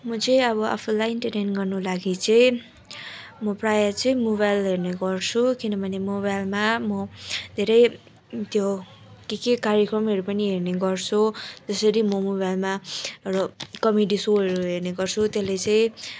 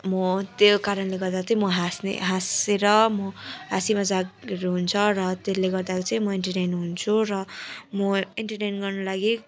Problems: constant background noise, continuous background conversations